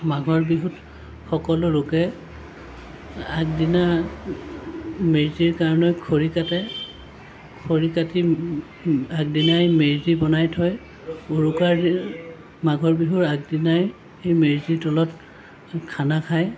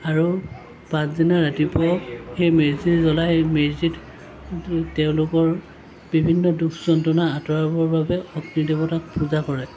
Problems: constant background noise